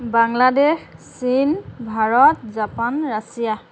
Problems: constant background noise